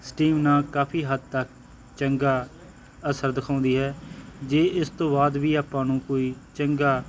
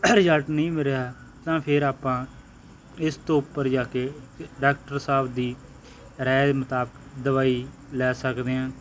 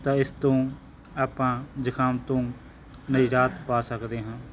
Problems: background sounds at intervals